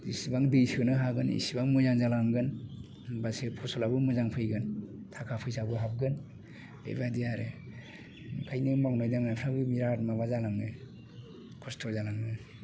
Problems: constant background noise